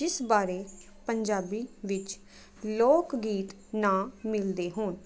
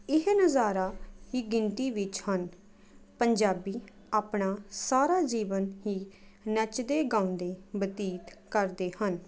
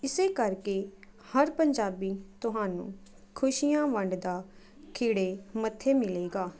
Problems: continuous background conversations